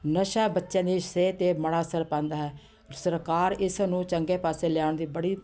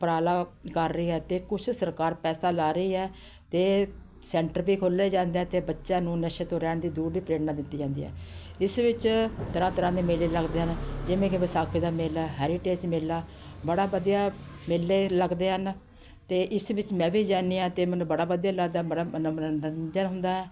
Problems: none marked